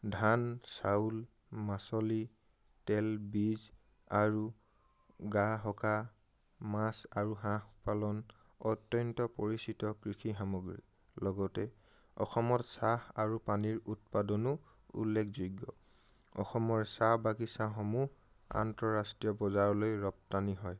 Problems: none marked